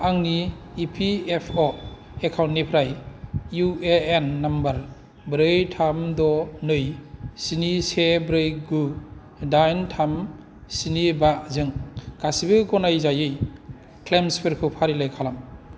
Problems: background sounds at intervals